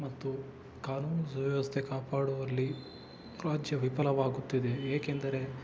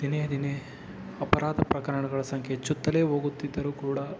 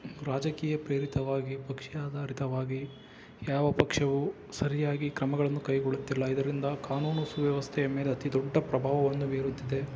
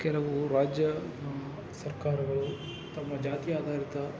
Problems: constant background noise